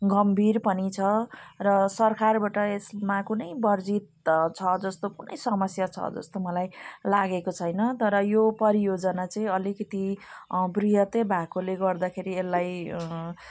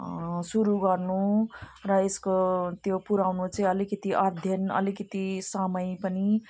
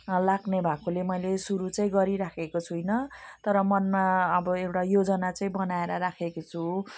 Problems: none marked